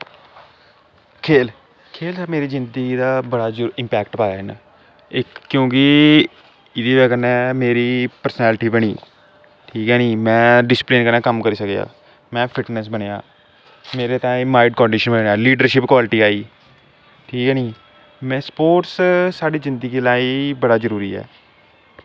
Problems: constant background noise